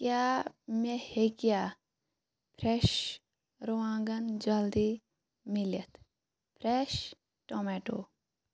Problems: none marked